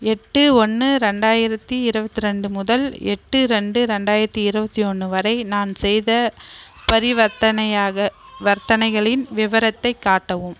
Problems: background sounds at intervals